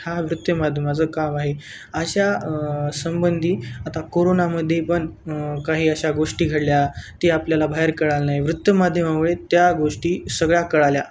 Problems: constant background noise